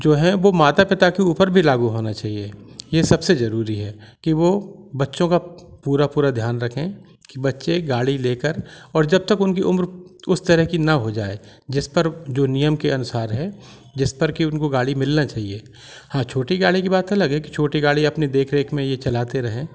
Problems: background sounds at intervals